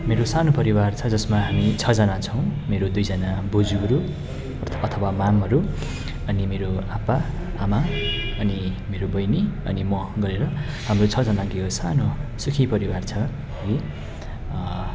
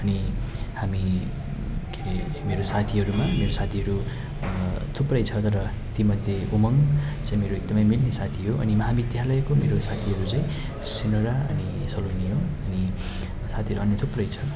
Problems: constant background noise